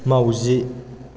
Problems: none marked